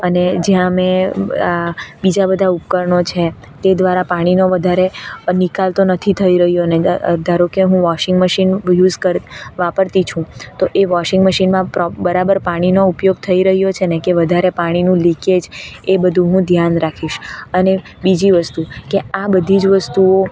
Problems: constant background noise